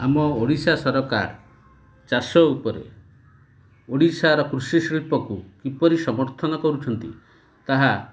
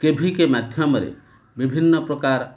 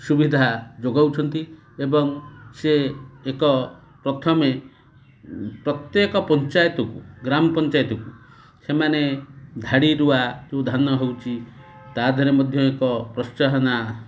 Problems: constant background noise